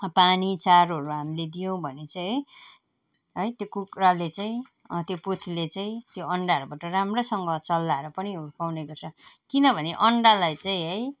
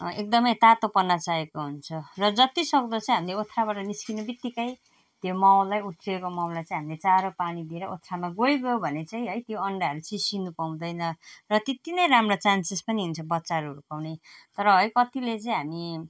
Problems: none marked